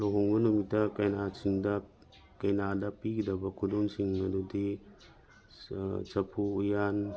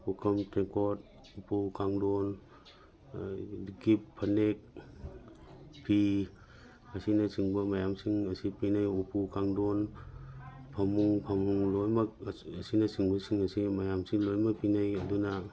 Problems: background sounds at intervals